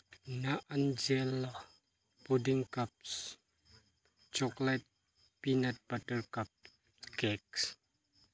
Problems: none marked